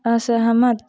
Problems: background sounds at intervals, background conversations at intervals